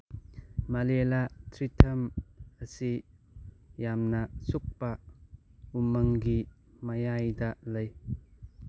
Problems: low volume